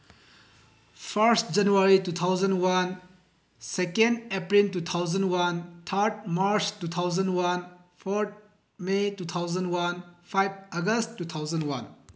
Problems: none marked